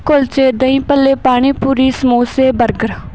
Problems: none marked